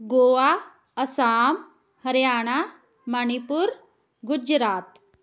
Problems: background sounds at intervals